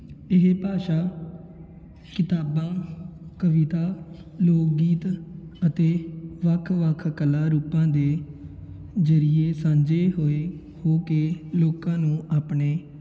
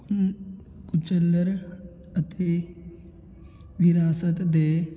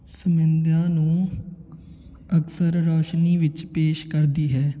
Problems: constant background noise